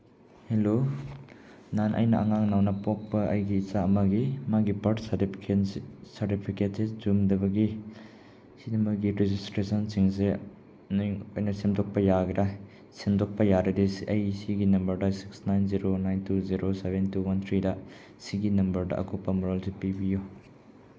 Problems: none marked